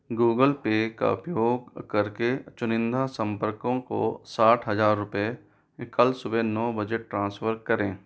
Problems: none marked